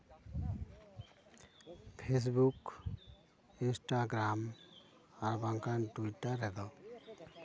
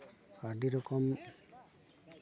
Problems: background conversations at intervals